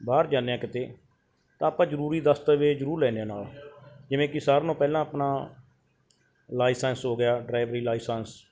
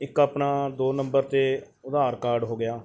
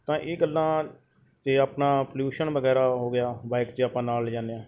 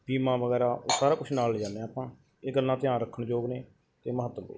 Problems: background sounds at intervals